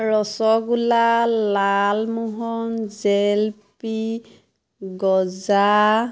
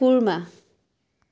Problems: constant background noise